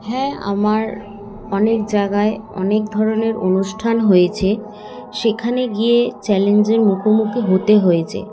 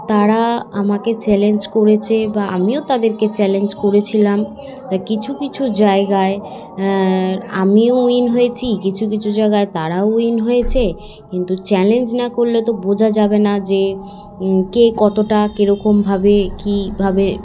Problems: constant background noise, continuous background conversations